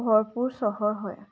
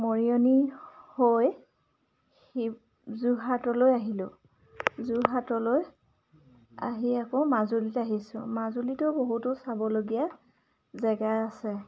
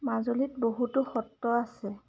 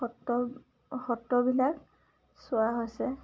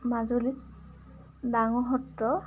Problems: background sounds at intervals, background conversations at intervals